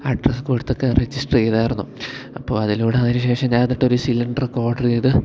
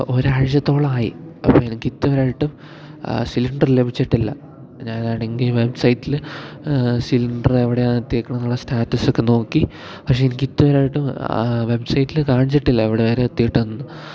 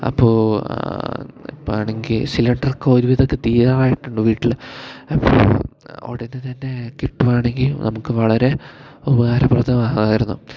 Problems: low volume